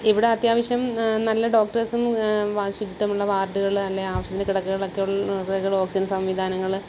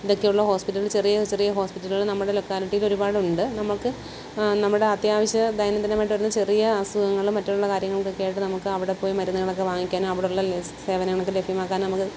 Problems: constant background noise